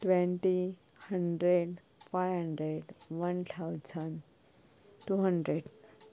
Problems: low volume